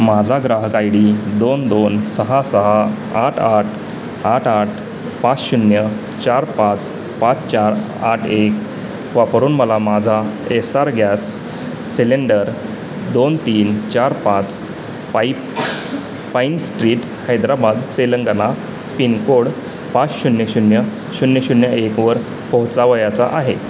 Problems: constant background noise, background conversations at intervals